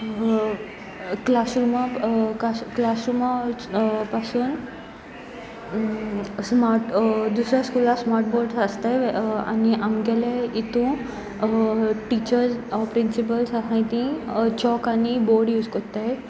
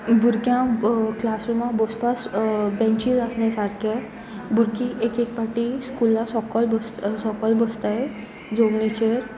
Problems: none marked